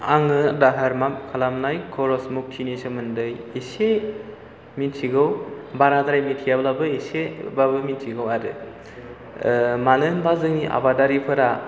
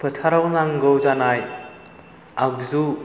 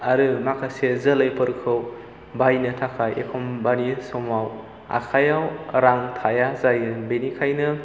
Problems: background sounds at intervals